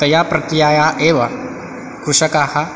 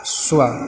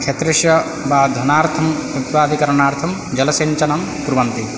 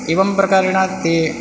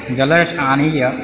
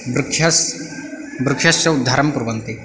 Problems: background sounds at intervals